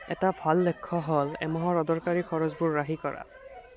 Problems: continuous background conversations